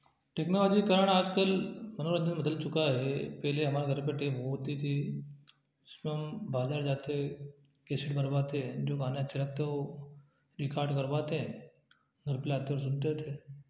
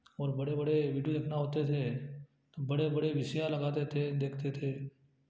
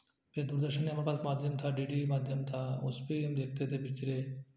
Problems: low volume